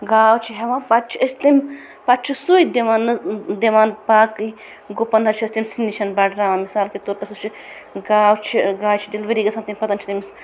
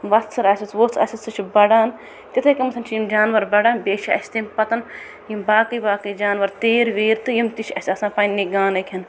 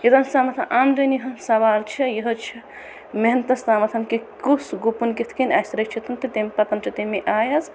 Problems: constant background noise